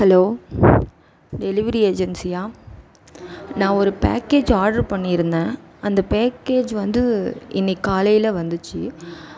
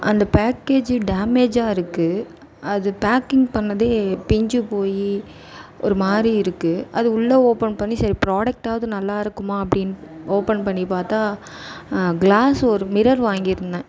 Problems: background conversations at intervals